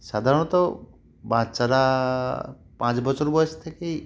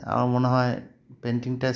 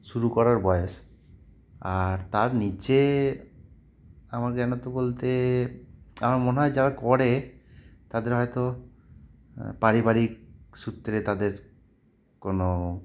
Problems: none marked